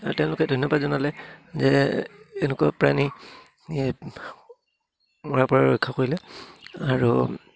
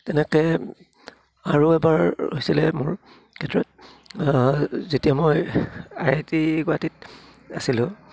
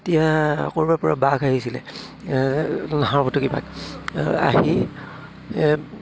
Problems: low volume